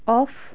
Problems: none marked